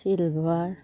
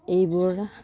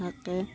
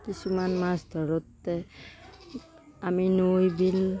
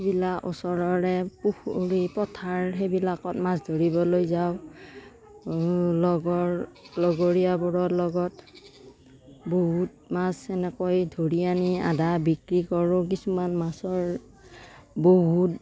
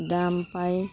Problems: constant background noise